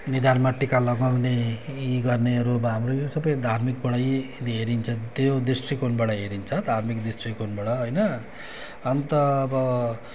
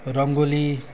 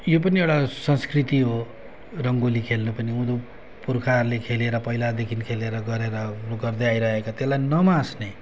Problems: none marked